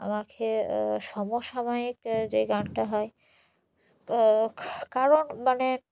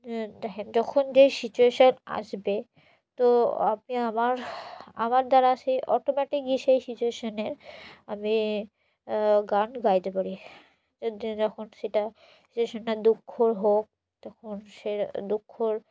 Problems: none marked